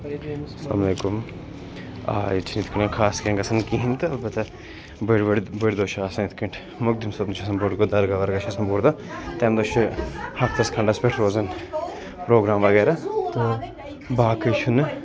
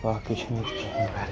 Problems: constant background noise, continuous background conversations